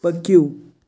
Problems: background sounds at intervals